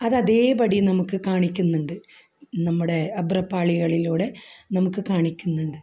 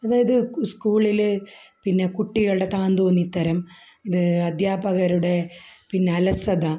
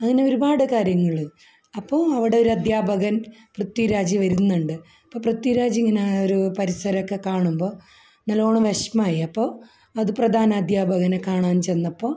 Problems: low volume